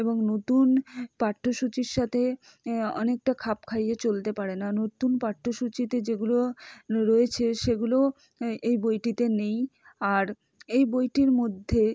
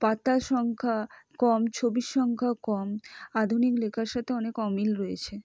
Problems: none marked